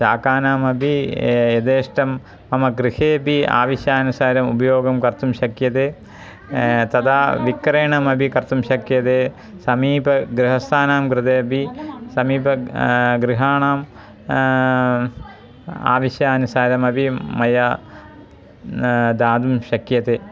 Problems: continuous background conversations